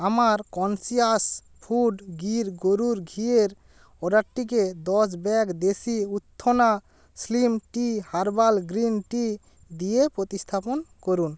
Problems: none marked